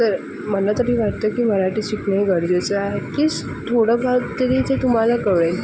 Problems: constant background noise